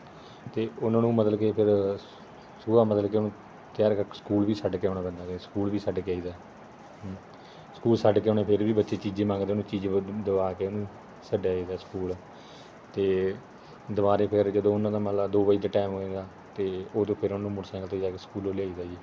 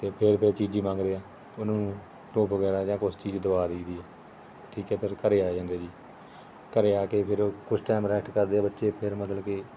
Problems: constant background noise, background conversations at intervals